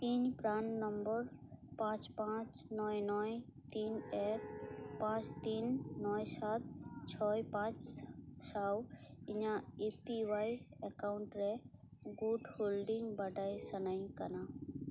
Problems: none marked